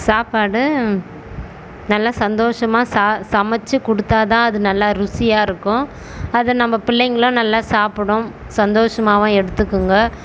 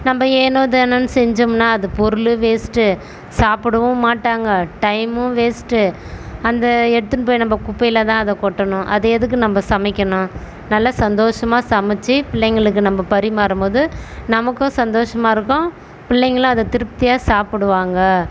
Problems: constant background noise